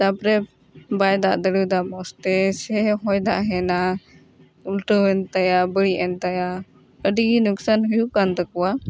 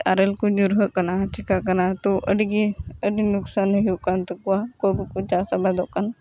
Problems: background sounds at intervals